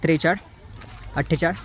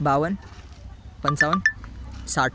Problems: constant background noise, background conversations at intervals